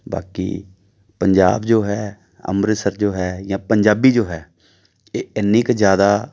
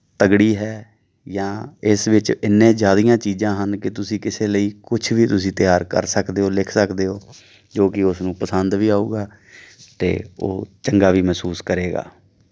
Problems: none marked